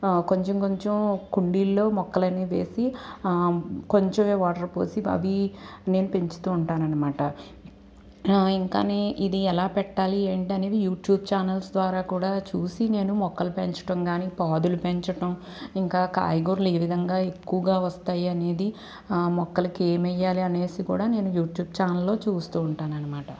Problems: none marked